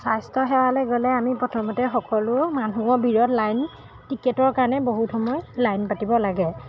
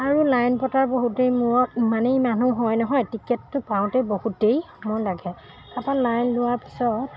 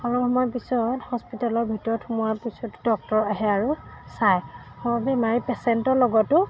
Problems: background sounds at intervals